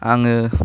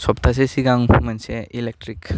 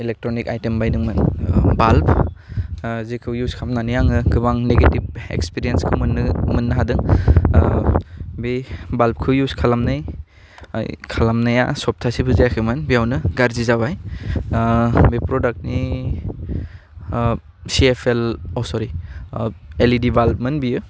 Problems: low volume